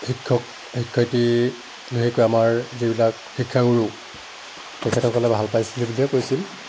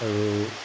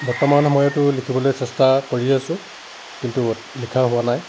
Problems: none marked